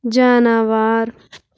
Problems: constant background noise